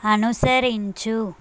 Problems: constant background noise